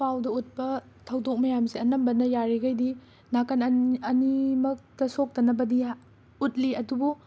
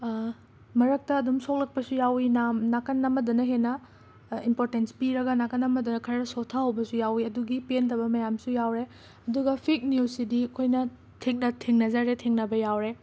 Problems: constant background noise